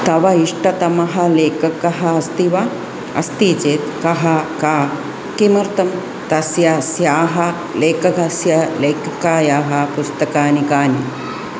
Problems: none marked